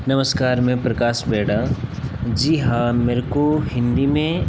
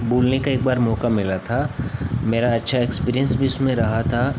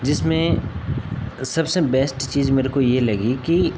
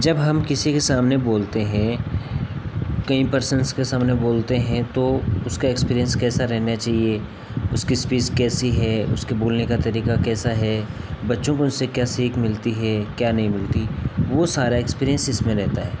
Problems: none marked